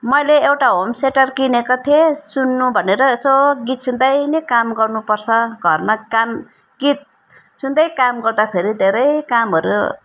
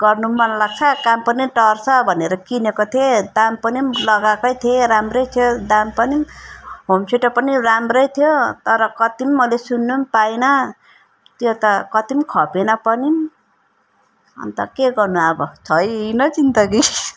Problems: background sounds at intervals